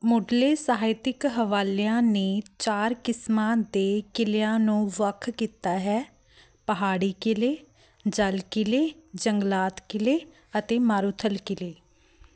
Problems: constant background noise